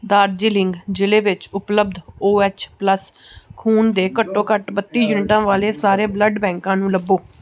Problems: background conversations at intervals